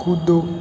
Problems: constant background noise